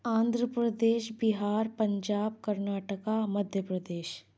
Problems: none marked